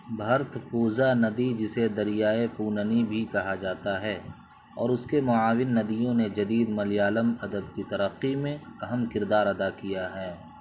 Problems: constant background noise